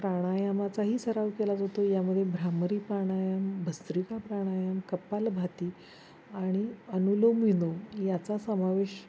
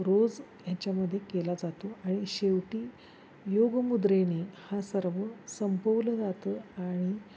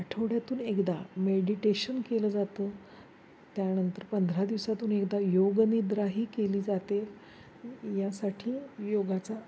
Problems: constant background noise, low volume